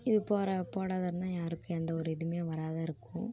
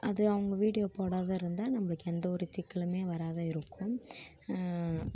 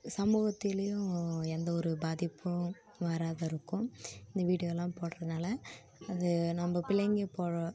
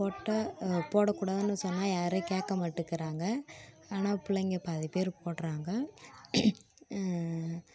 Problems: continuous background conversations